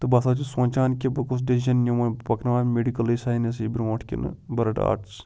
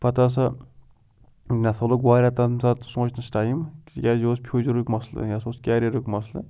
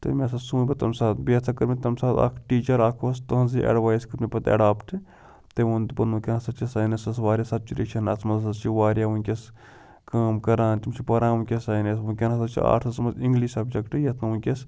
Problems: background sounds at intervals